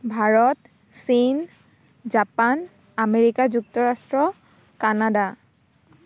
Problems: constant background noise